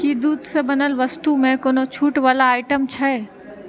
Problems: background sounds at intervals